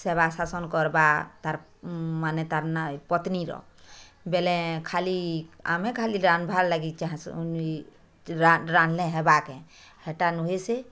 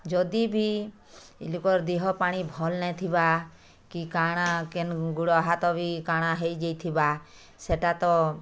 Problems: none marked